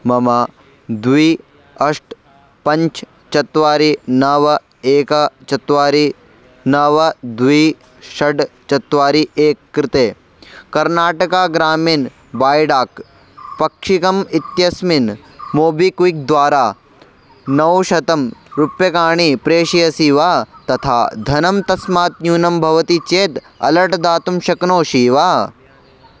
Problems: none marked